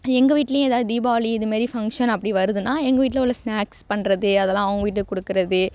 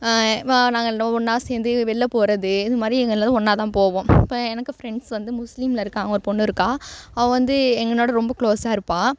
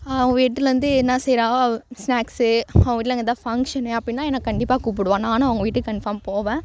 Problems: none marked